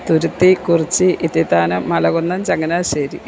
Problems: constant background noise